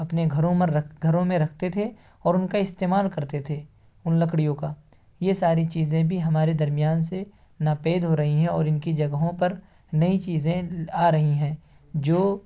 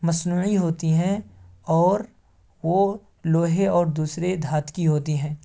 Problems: none marked